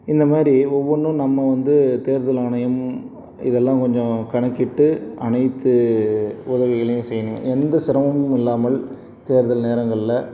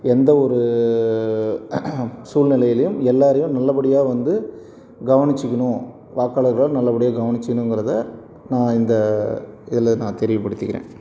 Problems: none marked